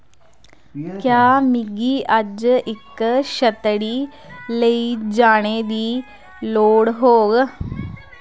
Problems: constant background noise